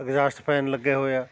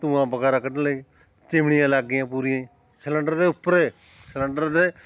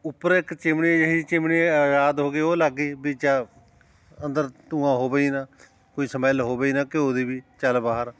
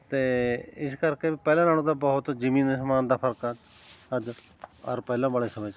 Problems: none marked